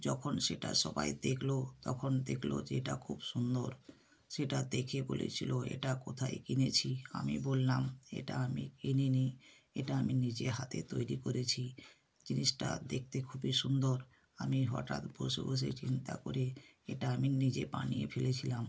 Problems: none marked